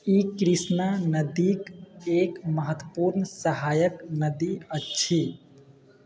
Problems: background sounds at intervals